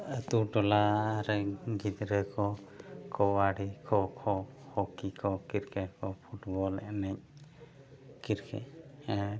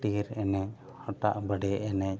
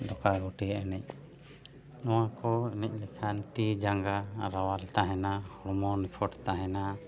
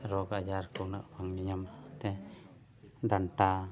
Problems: background sounds at intervals, background conversations at intervals